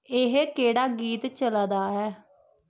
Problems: none marked